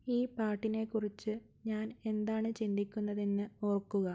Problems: low volume